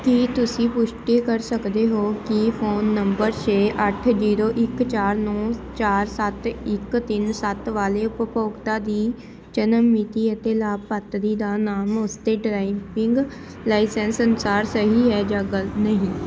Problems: constant background noise